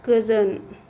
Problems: low volume